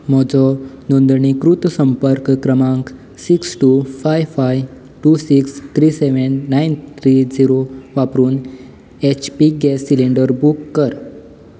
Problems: background sounds at intervals